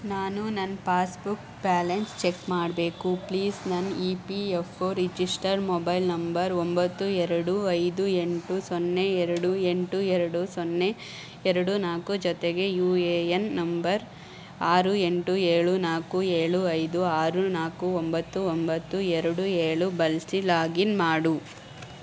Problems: none marked